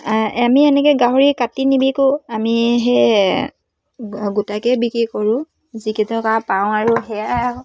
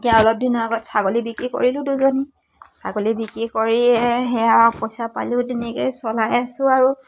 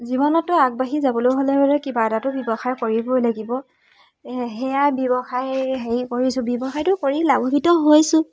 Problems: background sounds at intervals